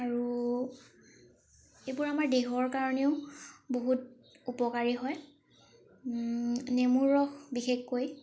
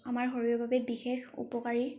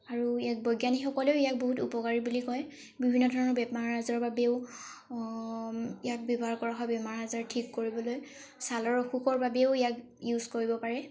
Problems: background sounds at intervals